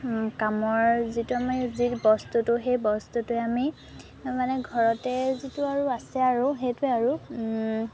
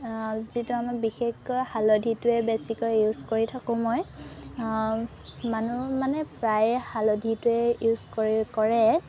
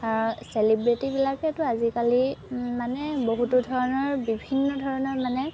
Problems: constant background noise